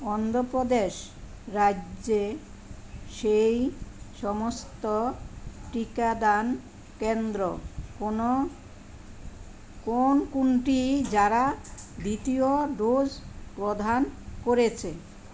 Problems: none marked